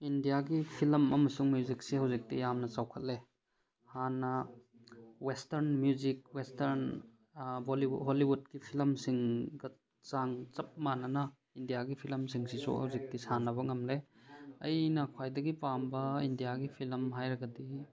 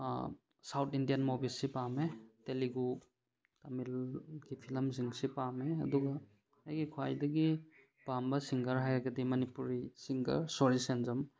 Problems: none marked